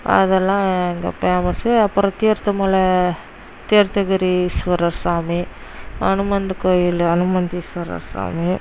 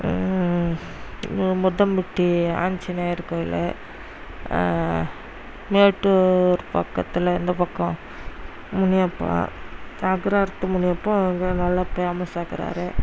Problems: none marked